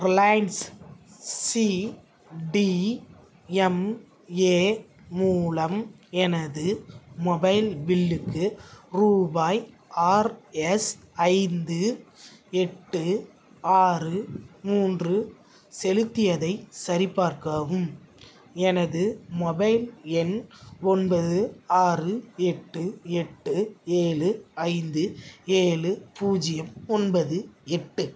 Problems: none marked